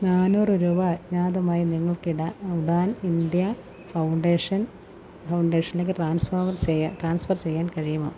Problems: low volume